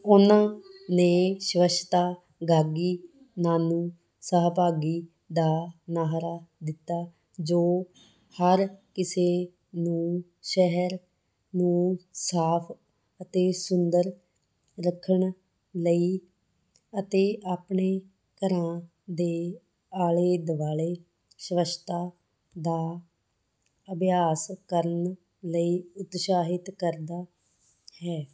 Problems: background sounds at intervals